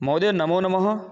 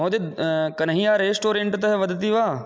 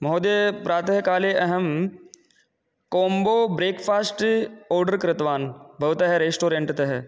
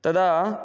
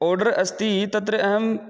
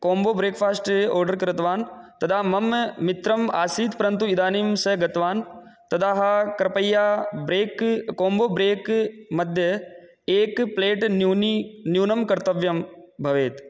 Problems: none marked